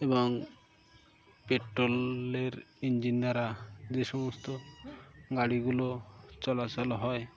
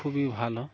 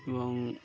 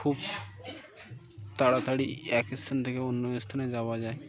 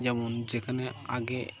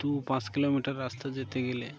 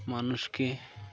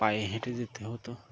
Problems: constant background noise, background conversations at intervals